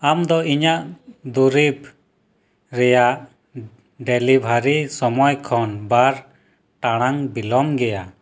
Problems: background sounds at intervals